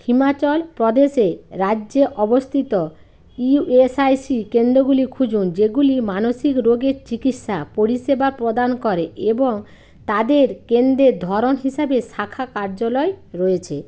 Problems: background sounds at intervals